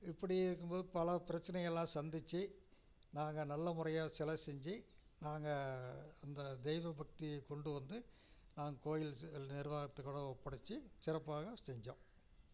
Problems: low volume